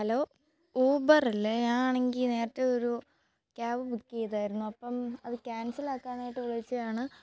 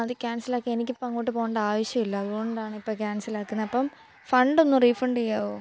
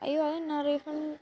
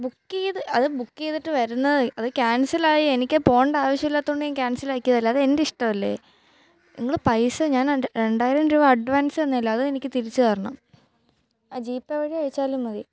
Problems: background sounds at intervals, low volume